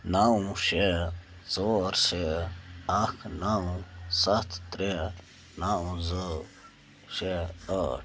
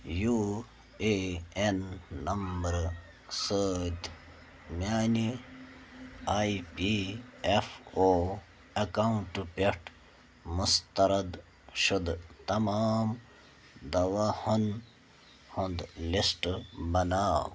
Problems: none marked